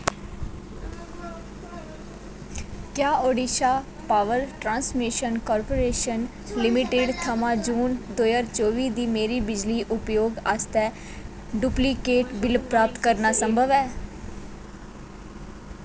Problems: constant background noise